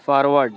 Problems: constant background noise